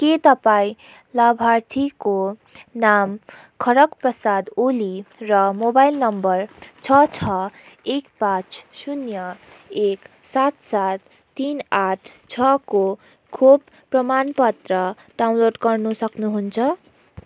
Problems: background sounds at intervals